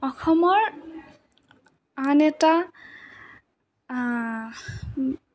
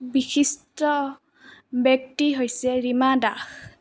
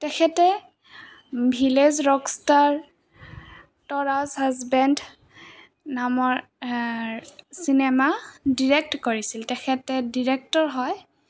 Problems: constant background noise, background conversations at intervals